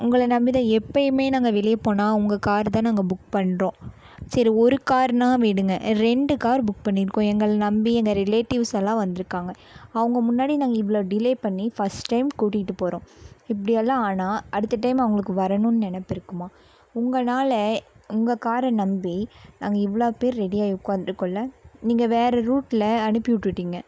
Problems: none marked